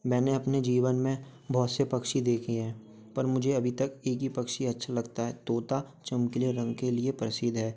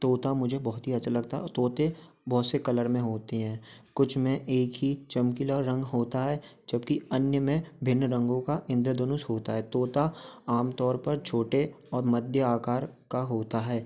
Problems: none marked